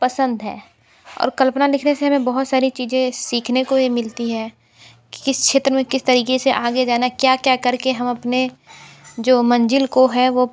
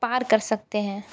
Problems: constant background noise